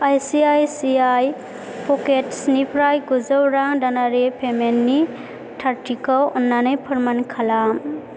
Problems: constant background noise